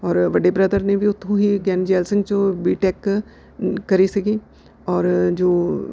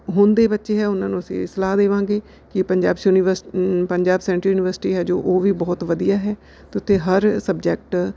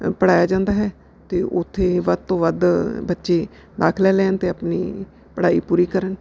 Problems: background sounds at intervals